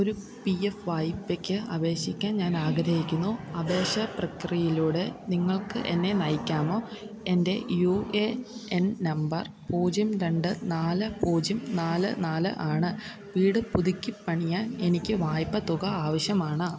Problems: background sounds at intervals